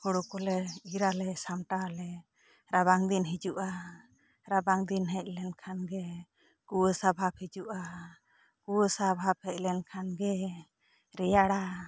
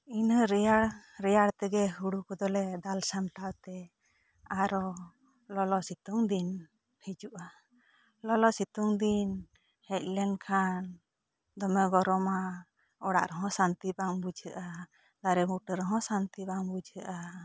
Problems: low volume